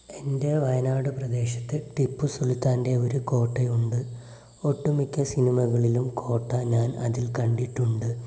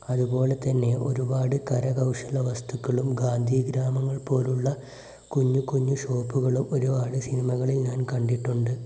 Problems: constant background noise